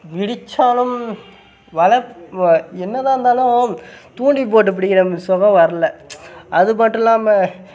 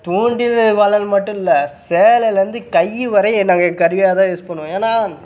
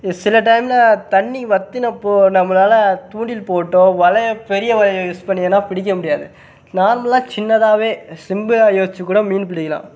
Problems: background sounds at intervals